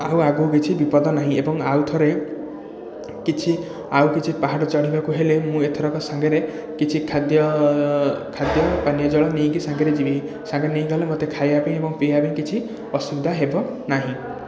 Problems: continuous background conversations